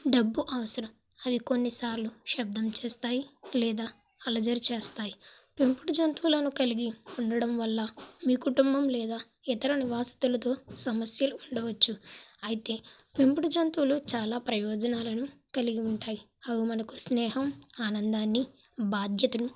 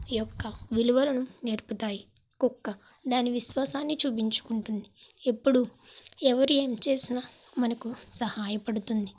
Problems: background sounds at intervals